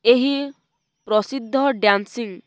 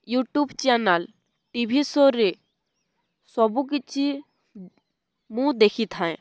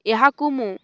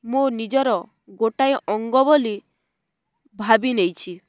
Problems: none marked